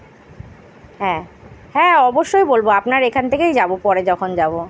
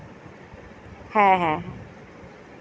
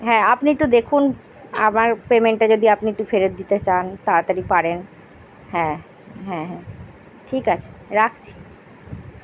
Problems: none marked